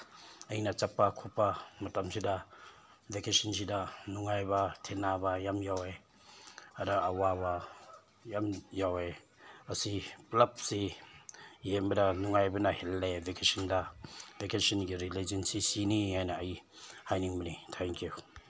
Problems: none marked